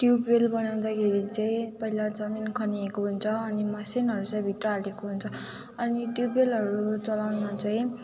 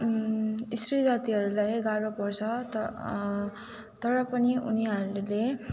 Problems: background sounds at intervals, background conversations at intervals